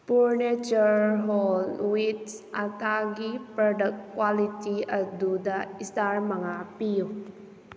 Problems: constant background noise